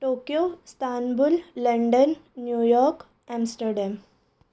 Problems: none marked